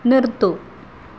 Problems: constant background noise